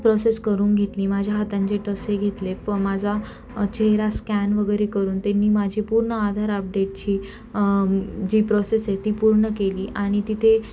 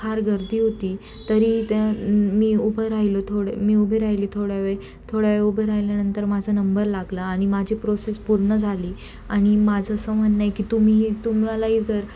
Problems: constant background noise